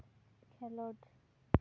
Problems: none marked